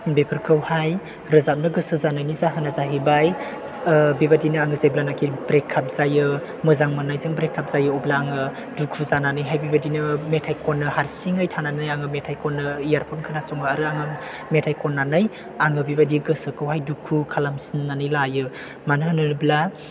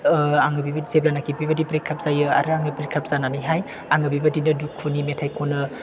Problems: constant background noise, background conversations at intervals